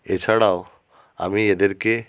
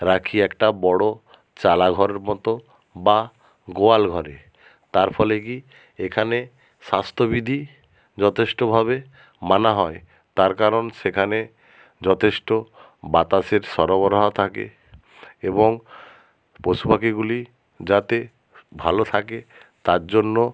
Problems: background sounds at intervals